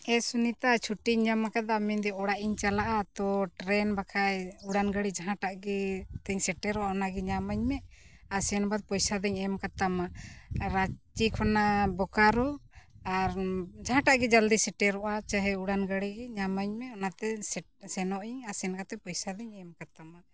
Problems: background sounds at intervals